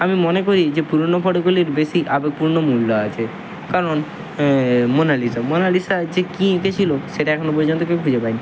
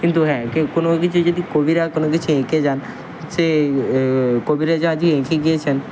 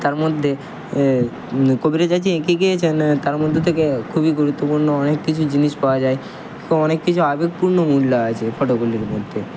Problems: constant background noise